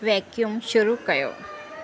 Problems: constant background noise